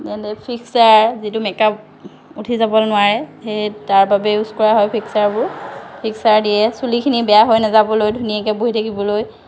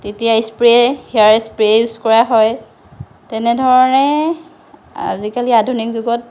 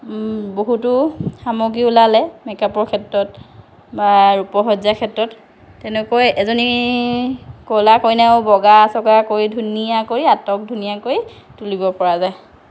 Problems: constant background noise